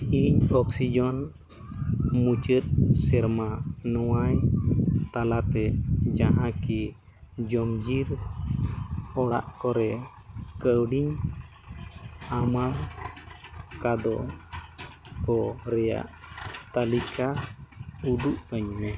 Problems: background sounds at intervals